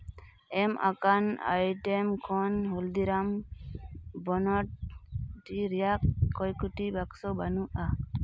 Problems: constant background noise